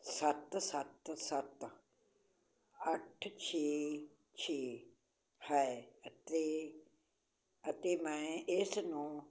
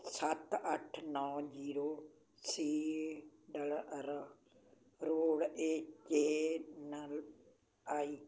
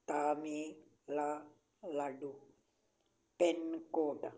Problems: background sounds at intervals